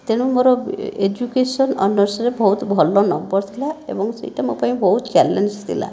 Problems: none marked